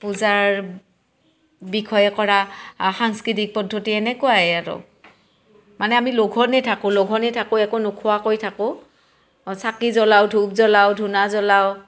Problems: background sounds at intervals